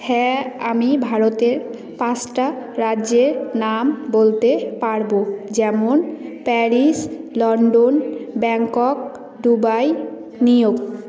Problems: constant background noise, continuous background conversations